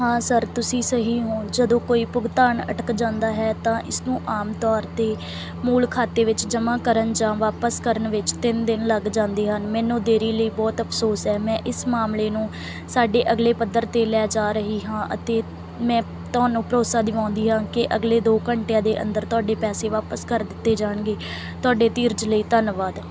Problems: none marked